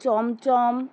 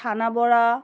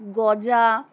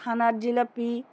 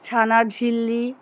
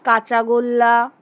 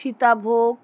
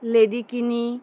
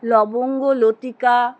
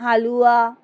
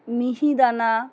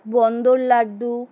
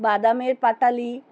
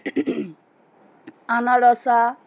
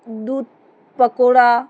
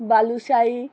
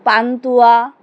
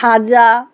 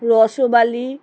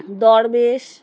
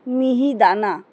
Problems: none marked